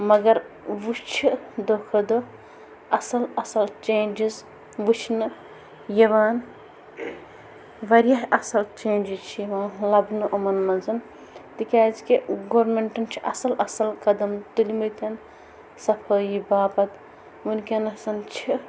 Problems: constant background noise, background conversations at intervals